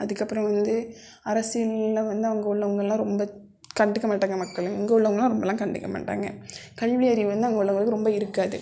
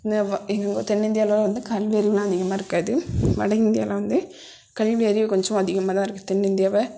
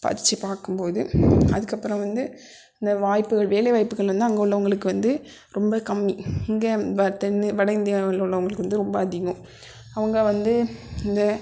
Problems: constant background noise